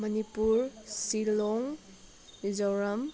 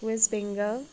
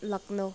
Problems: none marked